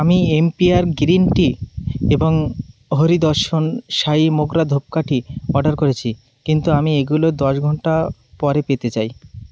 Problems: constant background noise